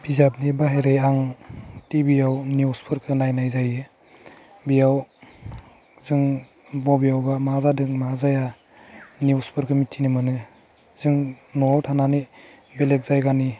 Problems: none marked